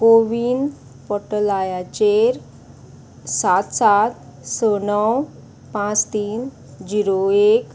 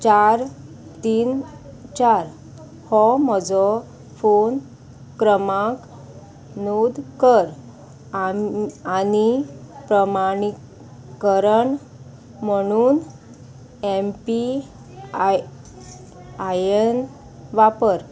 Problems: constant background noise